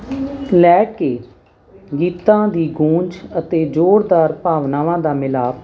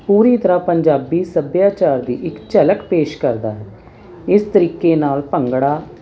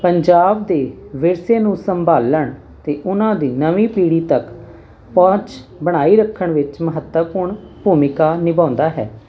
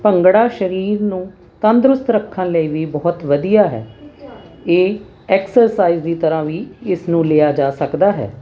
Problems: constant background noise